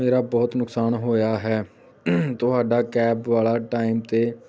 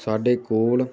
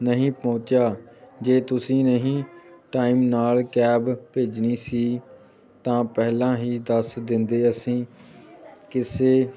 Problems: background sounds at intervals